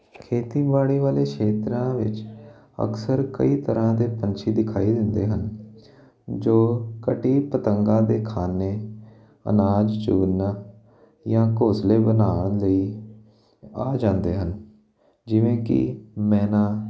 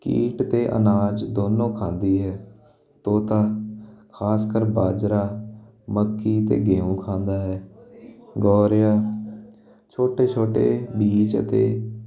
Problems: constant background noise